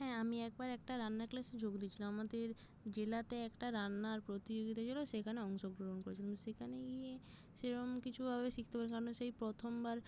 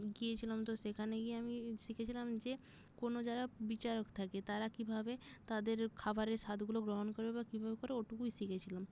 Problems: none marked